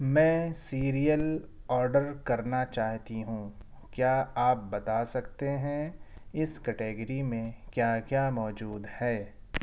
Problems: none marked